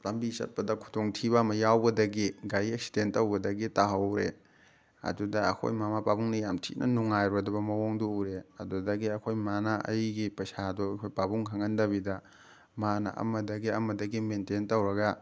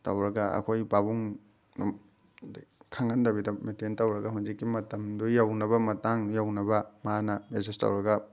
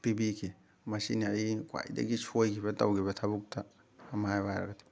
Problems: none marked